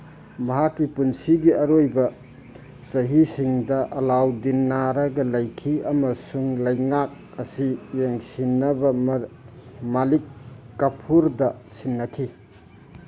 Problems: background sounds at intervals